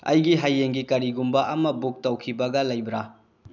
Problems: low volume